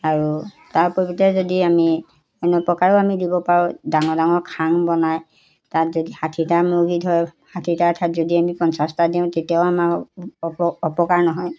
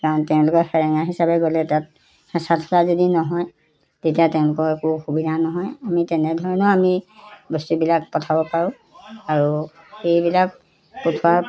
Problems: background sounds at intervals